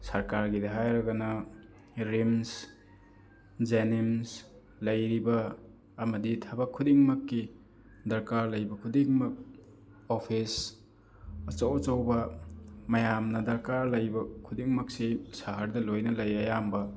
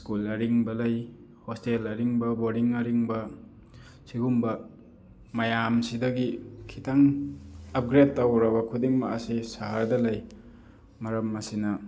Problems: constant background noise, background conversations at intervals